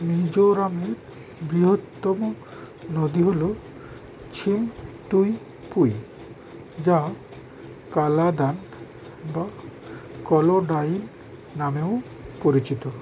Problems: constant background noise